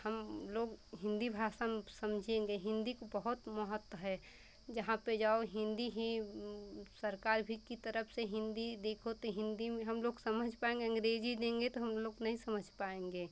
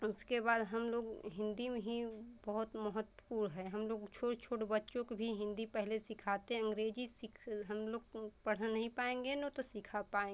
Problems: none marked